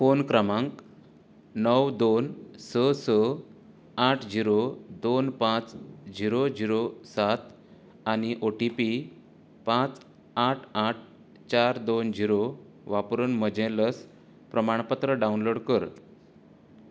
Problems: constant background noise